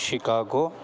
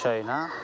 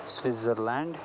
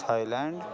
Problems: constant background noise, continuous background conversations